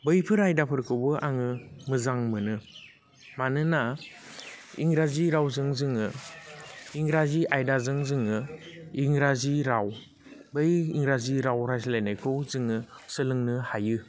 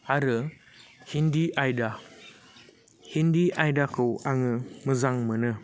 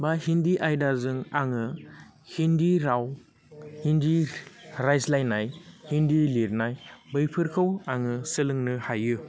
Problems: constant background noise